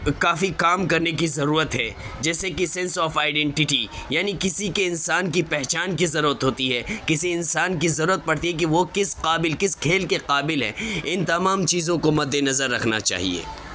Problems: constant background noise, background conversations at intervals